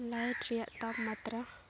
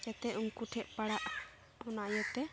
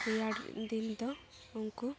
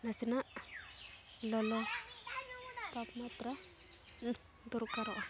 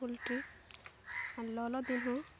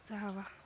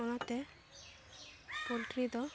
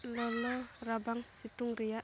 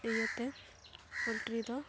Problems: constant background noise